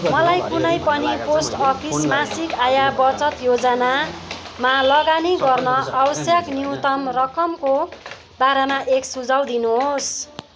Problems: continuous background conversations